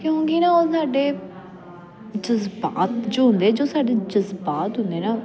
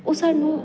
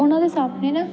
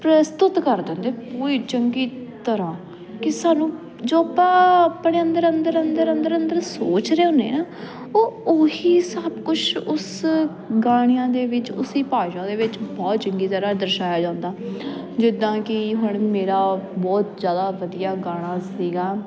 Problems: continuous background conversations